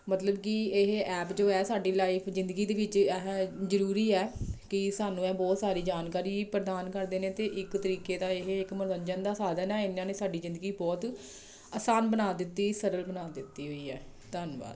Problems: background sounds at intervals